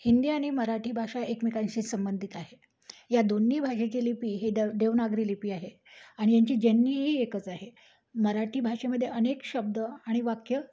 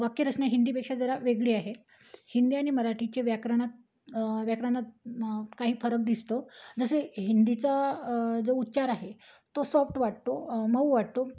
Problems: none marked